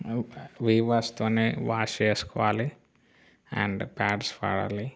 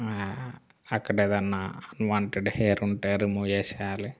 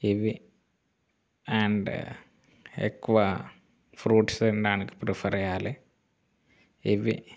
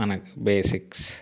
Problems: background sounds at intervals